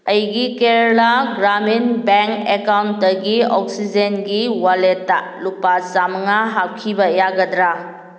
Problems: none marked